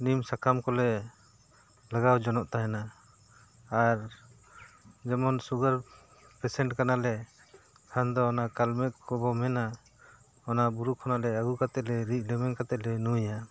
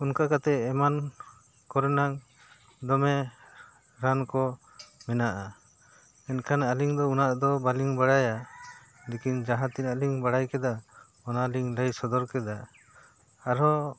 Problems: background sounds at intervals